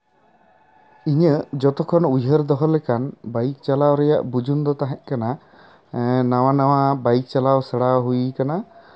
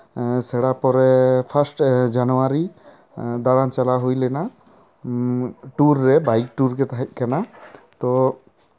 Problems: background sounds at intervals